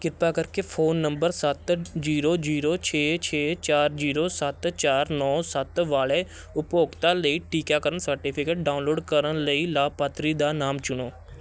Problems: constant background noise, background conversations at intervals